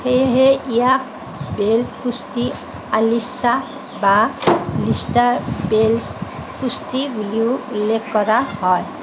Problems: none marked